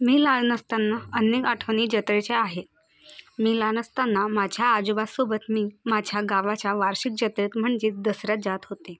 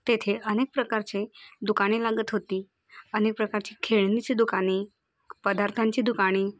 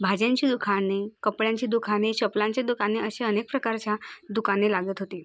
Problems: none marked